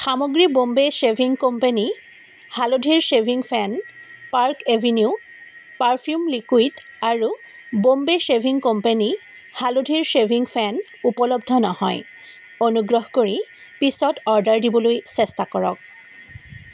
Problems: constant background noise